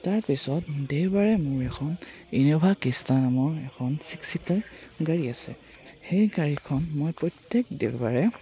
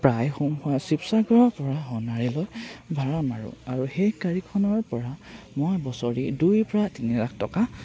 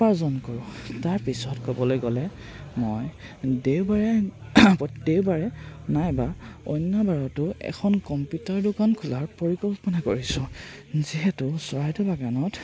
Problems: constant background noise, background conversations at intervals